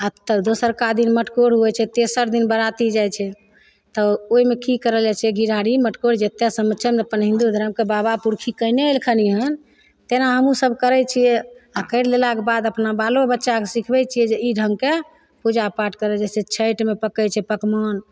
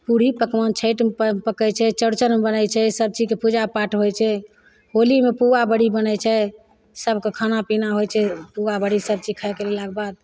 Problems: none marked